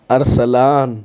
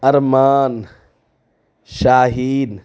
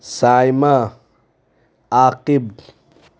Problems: none marked